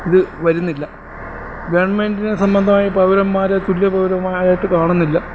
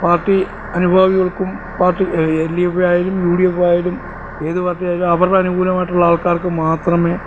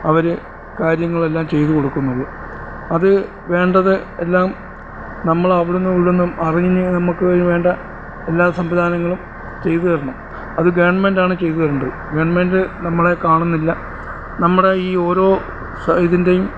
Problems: constant background noise